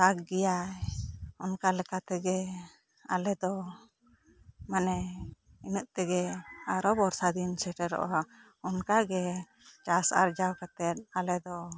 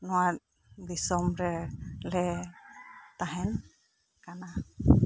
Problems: low volume